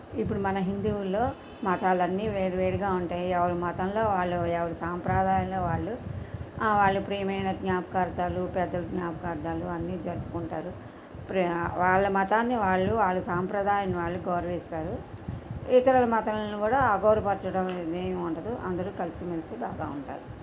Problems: constant background noise